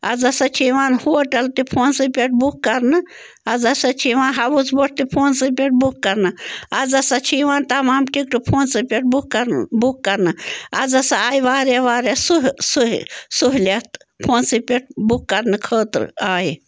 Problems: constant background noise